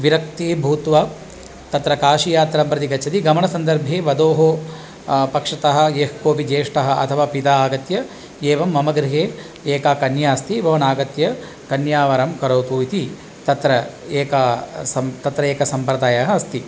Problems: none marked